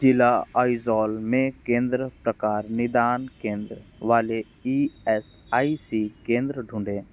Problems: background sounds at intervals